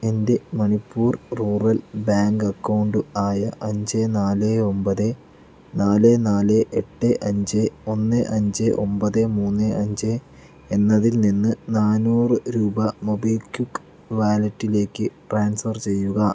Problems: none marked